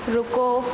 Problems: constant background noise, echo